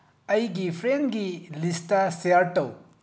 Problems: low volume